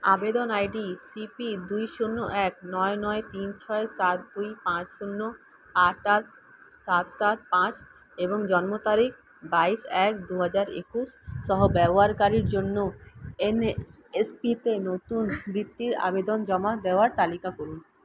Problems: constant background noise